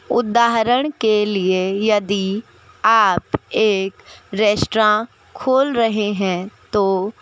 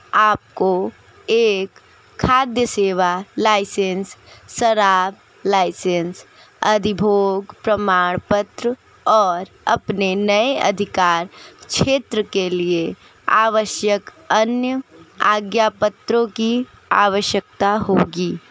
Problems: none marked